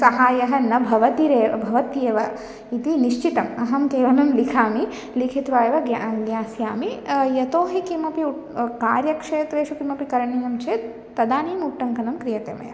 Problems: none marked